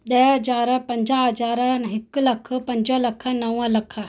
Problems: none marked